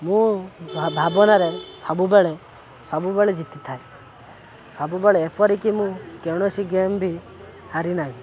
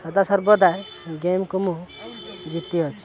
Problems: constant background noise, continuous background conversations